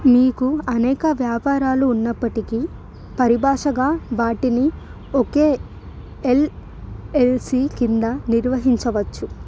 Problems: none marked